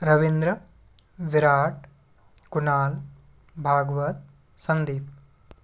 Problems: constant background noise